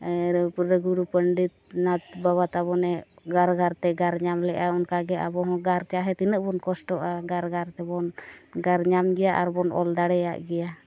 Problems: none marked